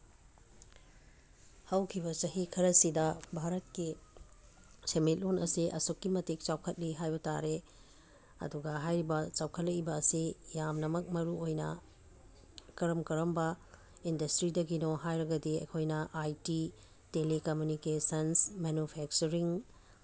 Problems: background sounds at intervals